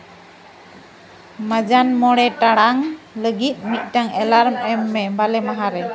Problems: background sounds at intervals, continuous background conversations